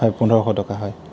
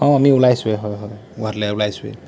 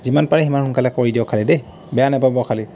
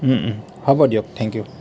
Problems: constant background noise